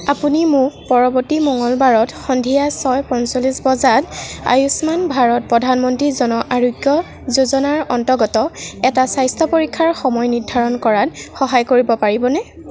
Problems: background sounds at intervals